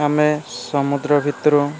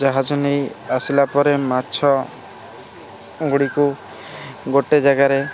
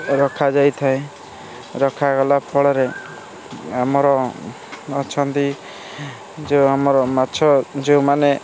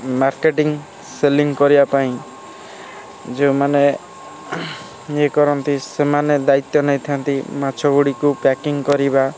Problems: constant background noise, continuous background conversations